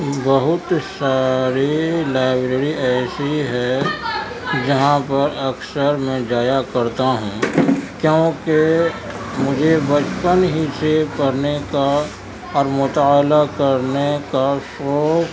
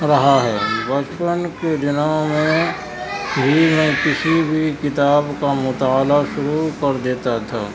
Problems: constant background noise, continuous background conversations